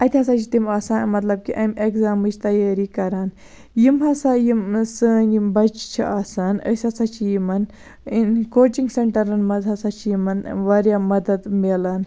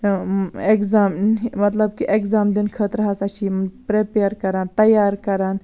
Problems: none marked